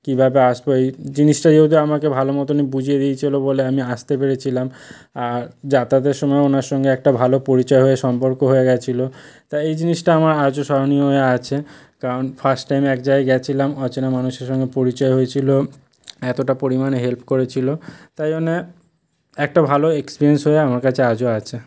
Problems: background sounds at intervals